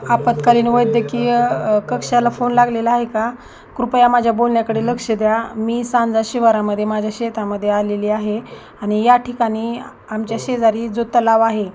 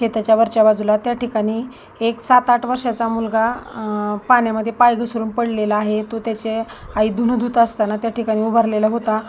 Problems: none marked